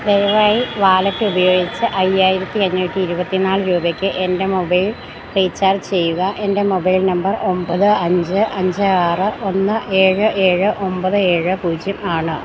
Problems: background sounds at intervals